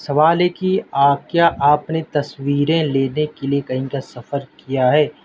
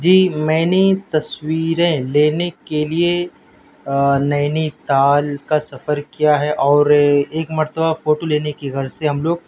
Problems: constant background noise